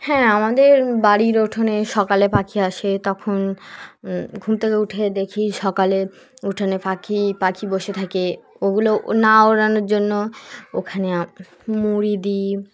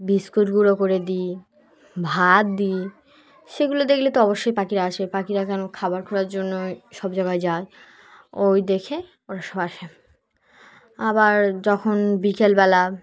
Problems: background sounds at intervals, background conversations at intervals